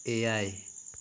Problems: none marked